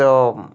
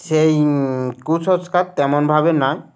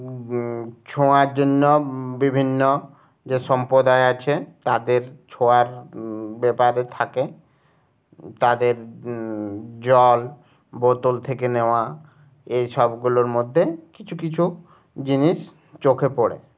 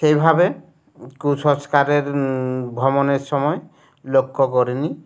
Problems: none marked